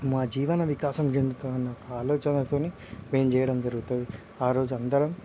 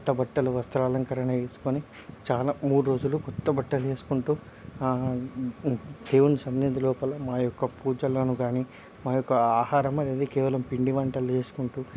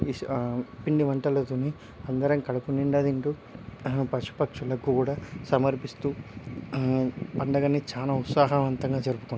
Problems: none marked